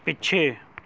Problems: background conversations at intervals